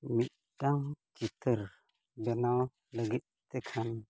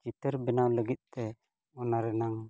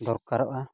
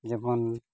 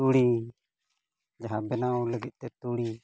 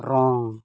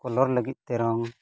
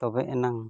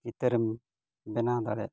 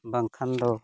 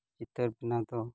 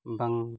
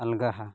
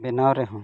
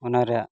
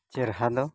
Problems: none marked